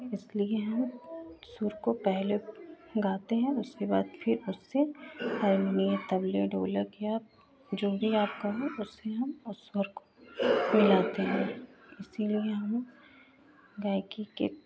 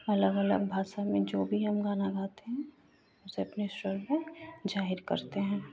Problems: none marked